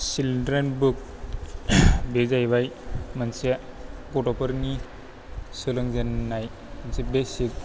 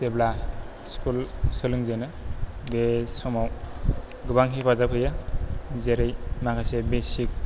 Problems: none marked